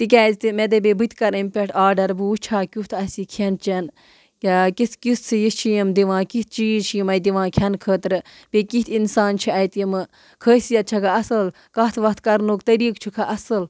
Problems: background sounds at intervals